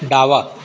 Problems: constant background noise